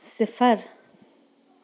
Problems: background sounds at intervals